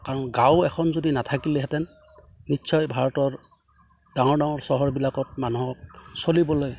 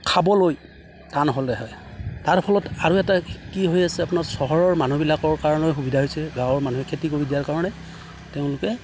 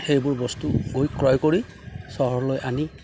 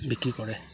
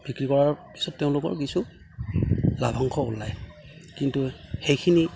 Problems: none marked